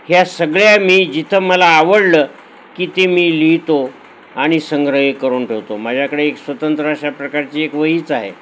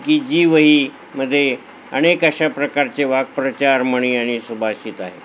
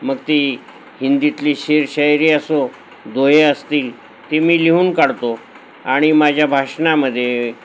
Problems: none marked